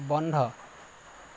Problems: constant background noise